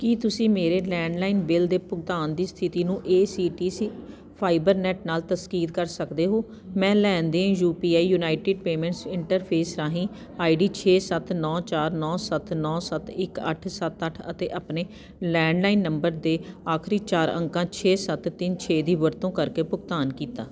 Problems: none marked